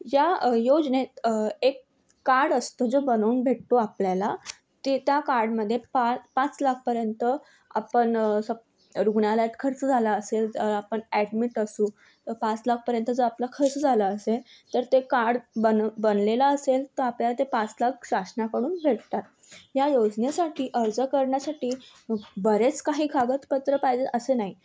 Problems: none marked